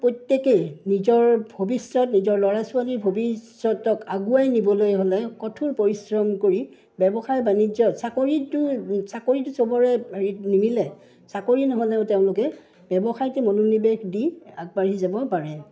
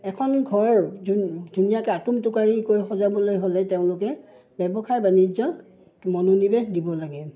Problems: none marked